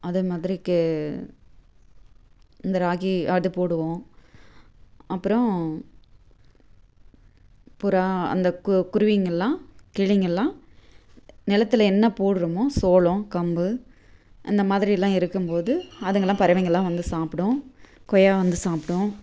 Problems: none marked